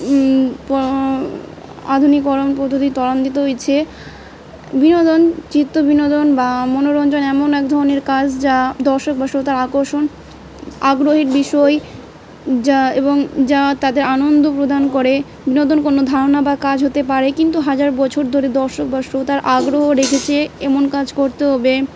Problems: background sounds at intervals